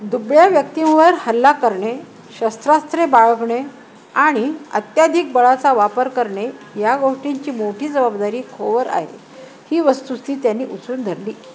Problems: none marked